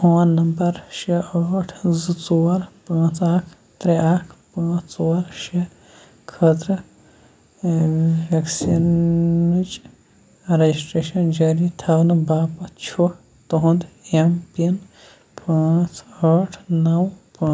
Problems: none marked